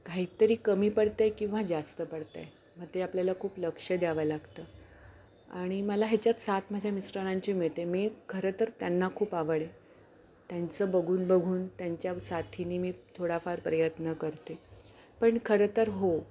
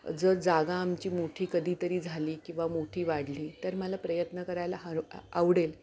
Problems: none marked